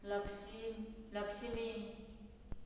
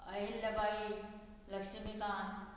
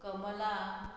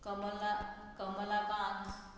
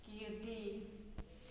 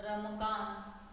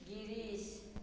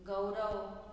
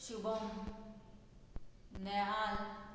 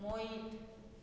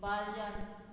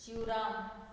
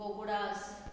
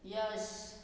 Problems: background sounds at intervals